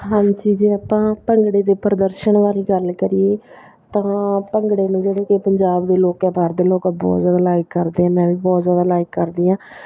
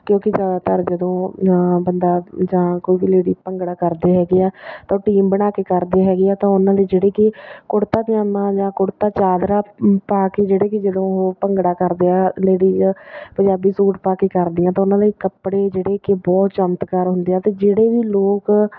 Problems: none marked